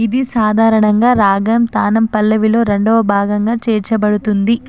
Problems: constant background noise